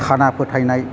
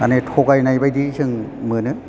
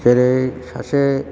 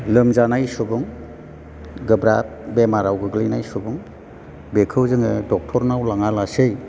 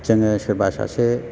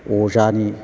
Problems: low volume